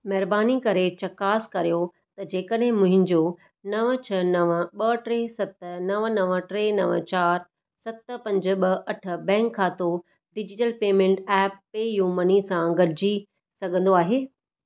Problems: none marked